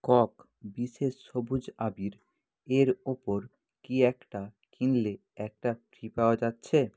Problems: none marked